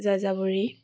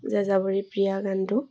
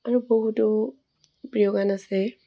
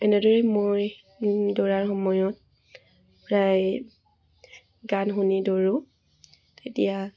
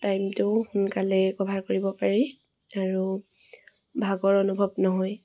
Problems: none marked